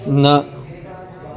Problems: continuous background conversations